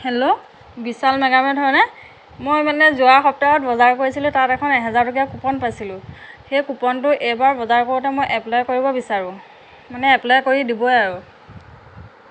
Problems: none marked